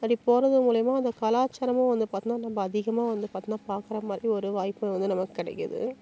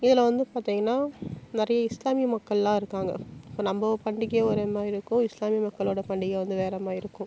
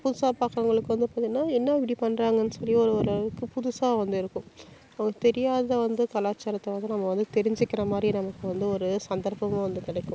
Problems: constant background noise